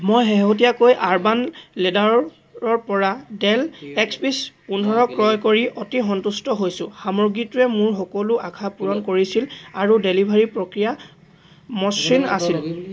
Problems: none marked